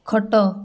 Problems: background sounds at intervals